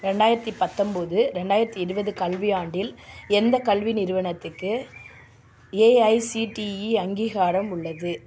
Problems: background sounds at intervals